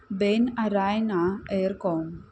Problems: constant background noise